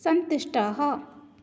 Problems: none marked